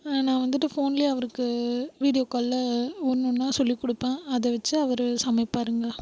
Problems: none marked